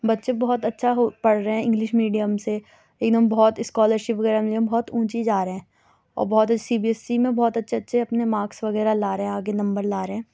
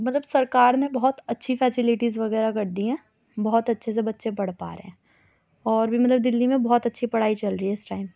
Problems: none marked